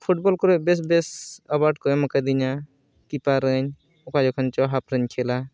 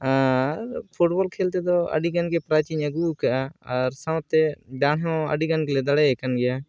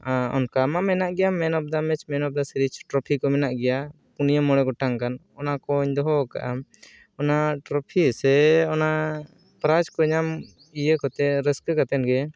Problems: background sounds at intervals